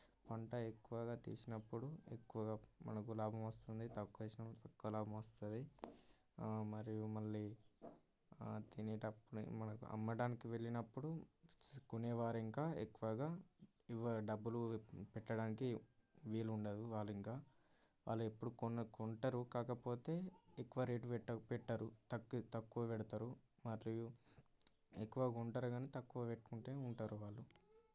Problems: background sounds at intervals, low volume